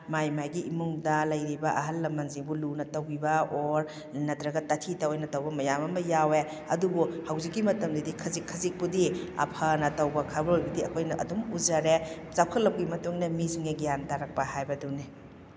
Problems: background sounds at intervals